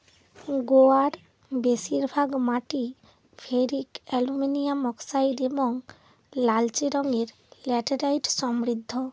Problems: constant background noise